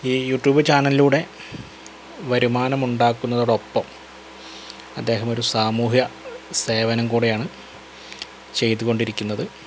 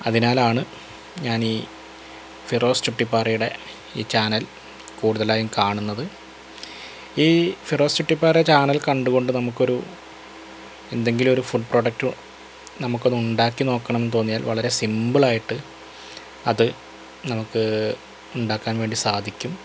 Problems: constant background noise